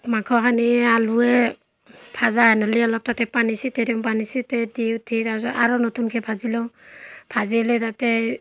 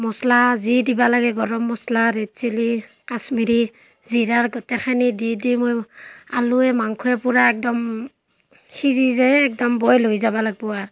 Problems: constant background noise, background conversations at intervals